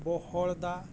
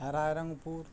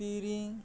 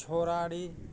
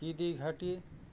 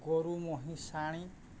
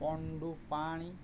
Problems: constant background noise, low volume